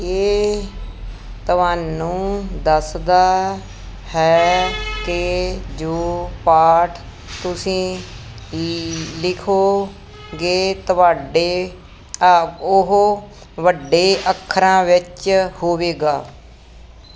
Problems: none marked